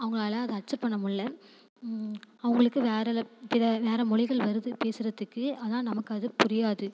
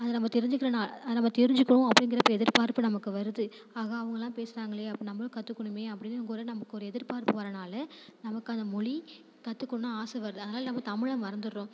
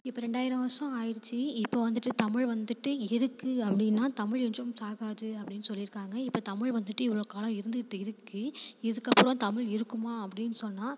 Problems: constant background noise